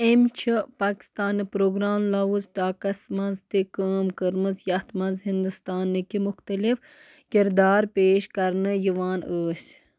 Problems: constant background noise